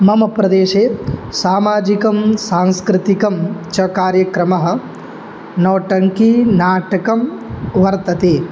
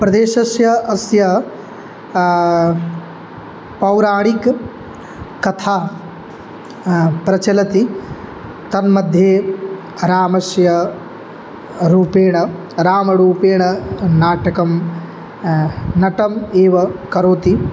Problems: background sounds at intervals